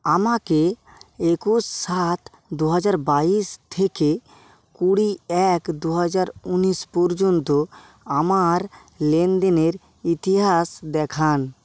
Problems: none marked